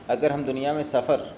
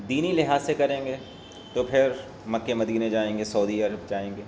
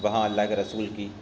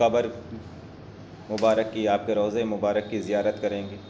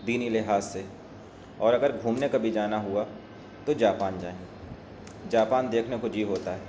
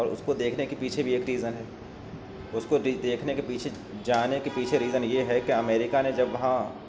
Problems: none marked